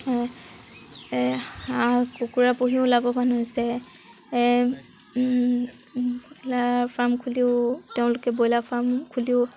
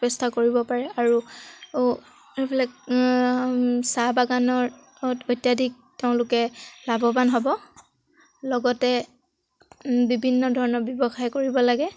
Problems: background sounds at intervals